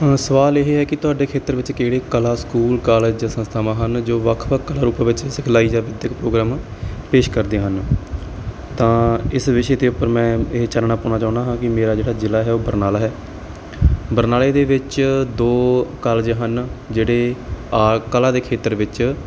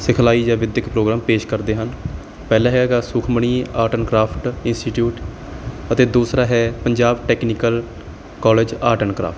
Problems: background sounds at intervals